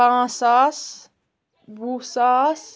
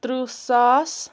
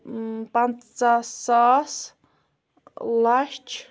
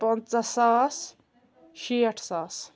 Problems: background sounds at intervals